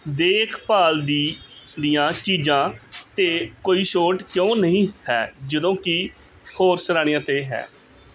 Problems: background conversations at intervals